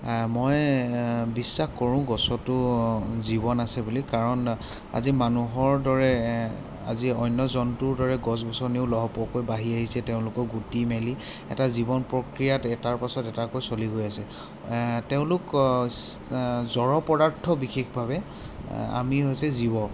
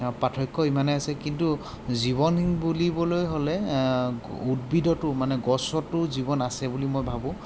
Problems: constant background noise